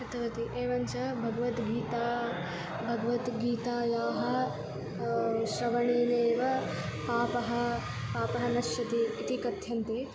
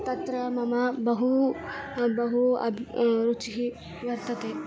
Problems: constant background noise